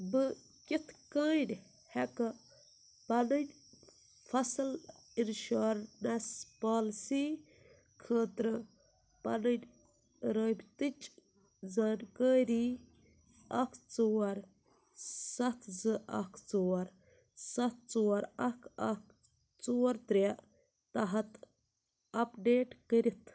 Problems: none marked